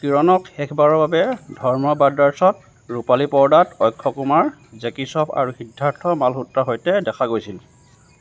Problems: none marked